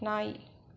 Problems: none marked